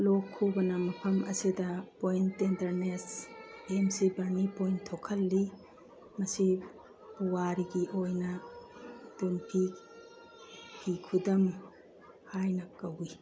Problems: background sounds at intervals, background conversations at intervals